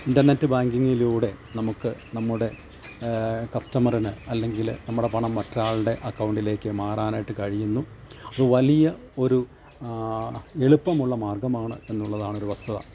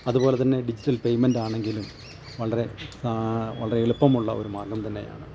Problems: constant background noise, low volume